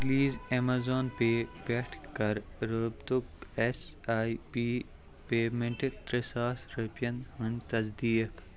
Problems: constant background noise, background conversations at intervals